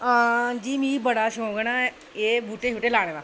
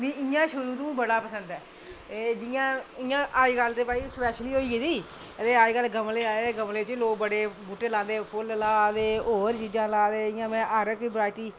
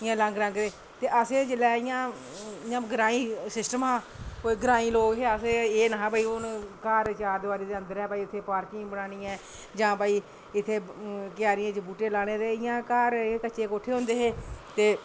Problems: none marked